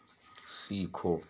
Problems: constant background noise, low volume